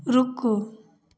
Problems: none marked